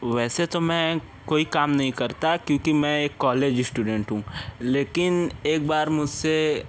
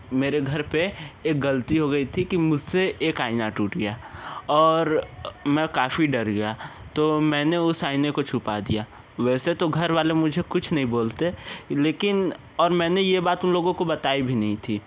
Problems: constant background noise, background conversations at intervals